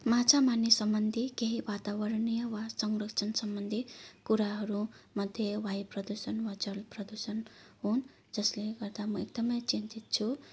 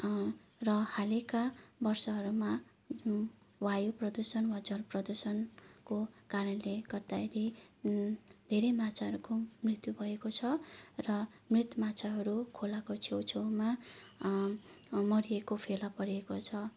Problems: none marked